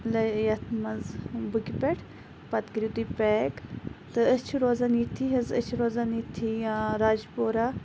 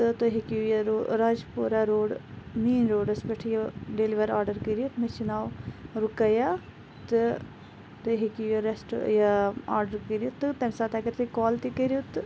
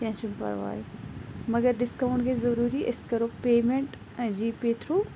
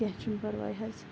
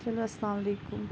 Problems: none marked